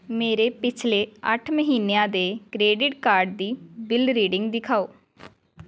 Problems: background sounds at intervals, background conversations at intervals